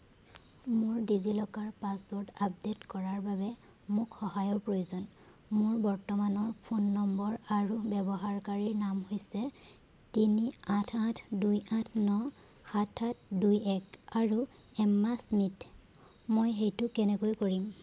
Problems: background sounds at intervals